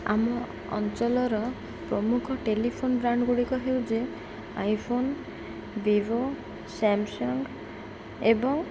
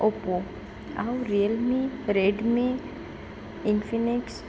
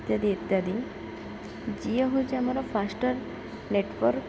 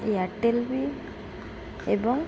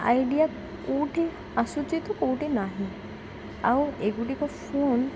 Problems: constant background noise, continuous background conversations